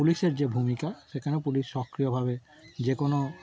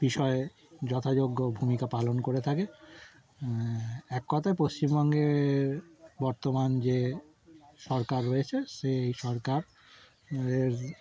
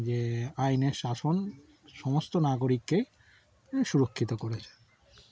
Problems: background sounds at intervals